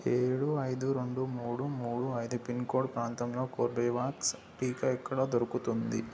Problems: constant background noise